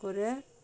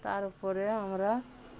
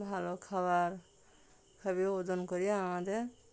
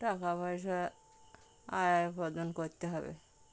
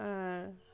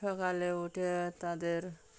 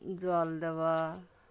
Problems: constant background noise